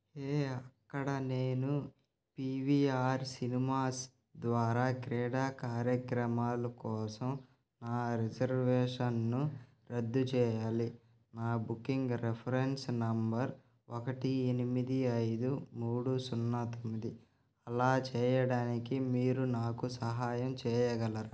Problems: constant background noise